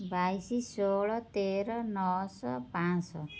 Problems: none marked